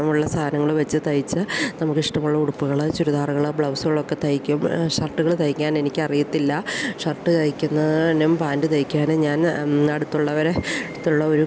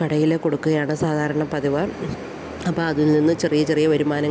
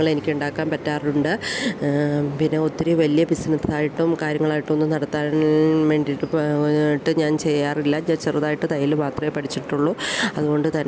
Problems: none marked